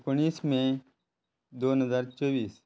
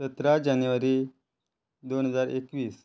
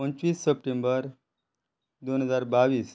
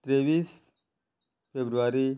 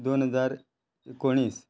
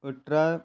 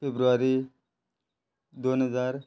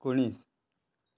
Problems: none marked